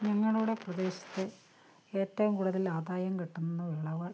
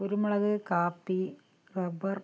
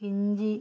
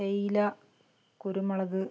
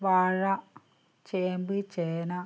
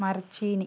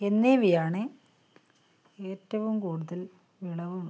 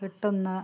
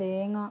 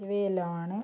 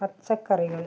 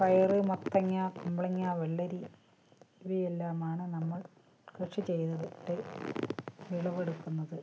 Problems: low volume